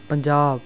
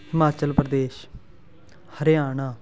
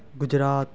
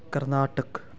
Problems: background sounds at intervals